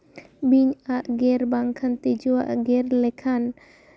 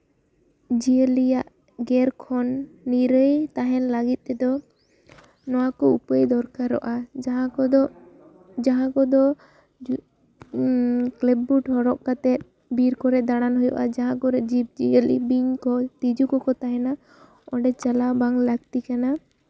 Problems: low volume